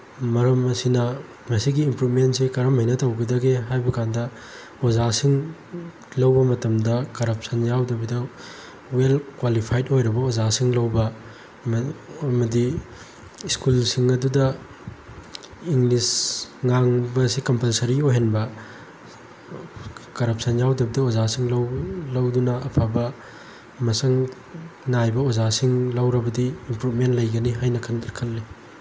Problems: constant background noise